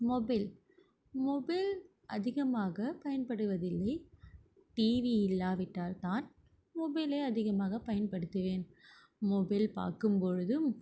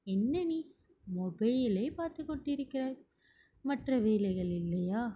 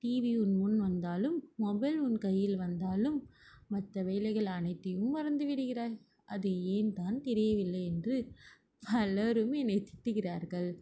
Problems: background sounds at intervals